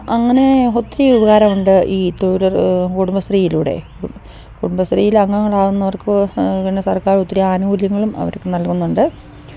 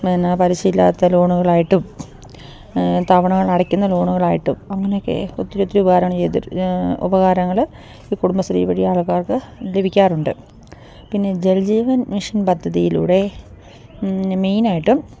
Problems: none marked